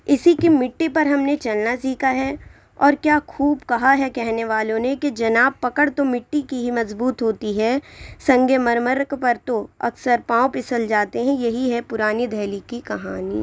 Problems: none marked